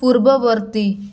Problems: constant background noise